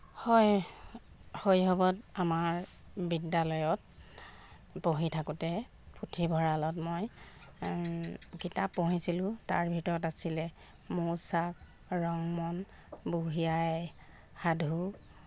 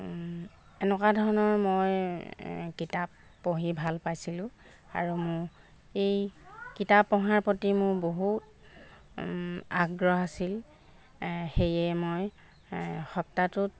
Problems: background sounds at intervals